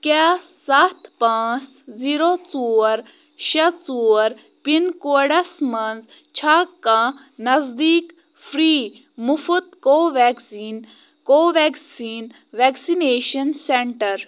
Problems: background sounds at intervals